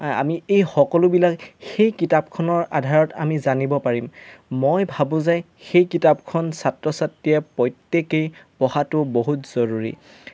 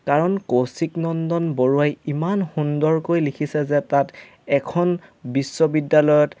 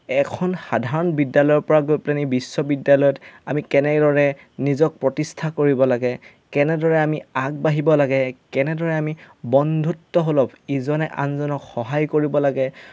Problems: none marked